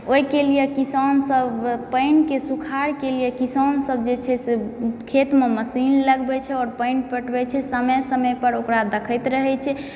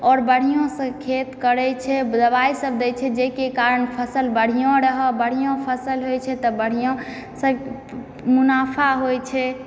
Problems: background sounds at intervals